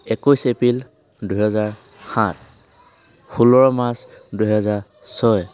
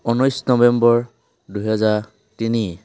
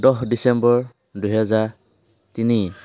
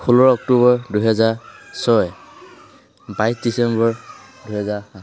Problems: background sounds at intervals, background conversations at intervals